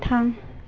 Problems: none marked